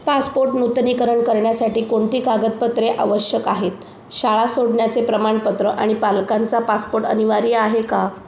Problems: constant background noise